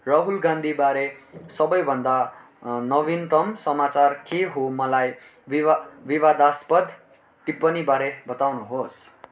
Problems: none marked